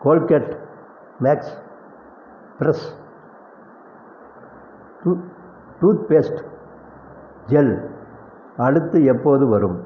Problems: none marked